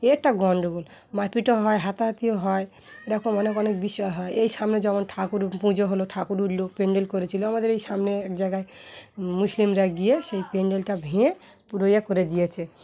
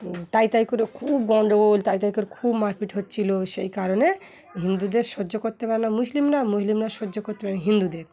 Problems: background sounds at intervals